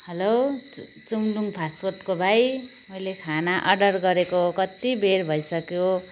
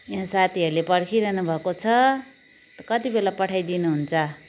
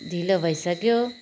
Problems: none marked